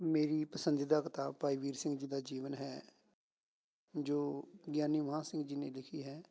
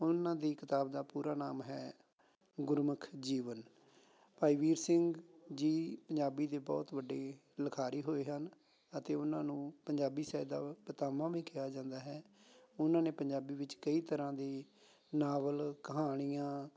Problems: none marked